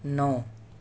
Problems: constant background noise